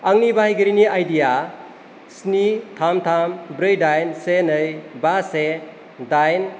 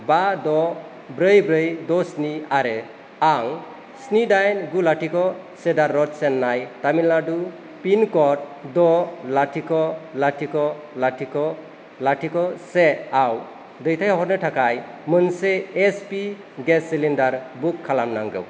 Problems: none marked